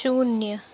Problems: none marked